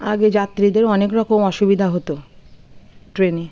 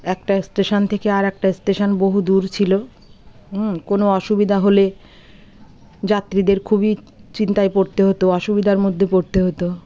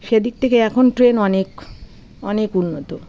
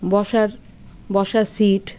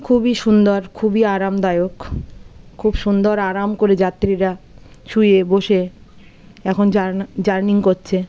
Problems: constant background noise, continuous background conversations